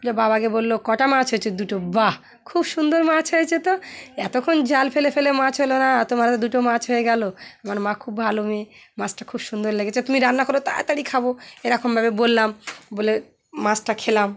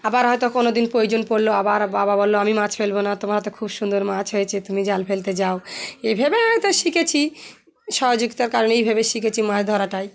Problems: constant background noise, continuous background conversations